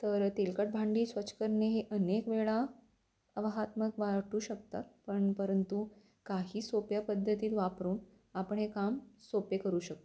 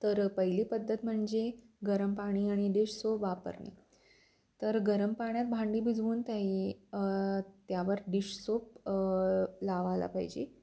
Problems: constant background noise